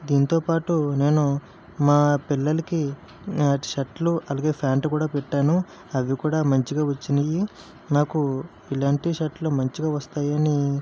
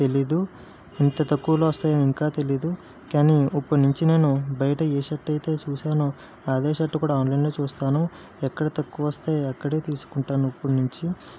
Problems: constant background noise